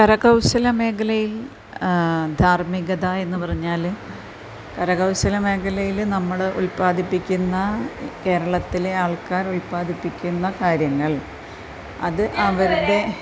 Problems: none marked